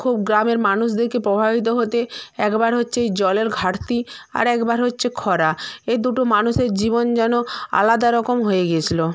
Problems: none marked